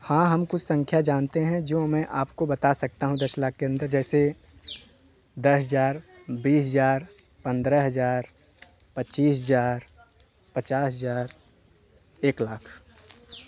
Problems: background sounds at intervals